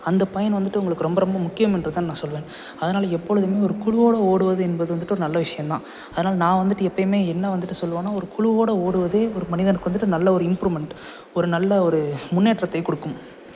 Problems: none marked